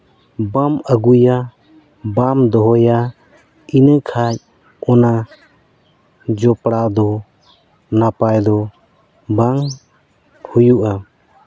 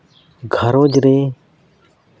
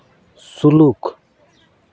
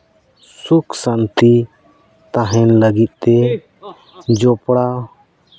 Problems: none marked